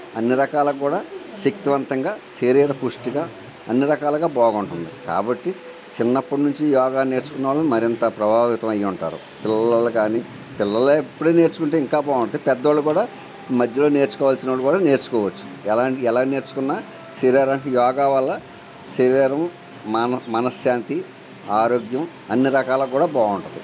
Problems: constant background noise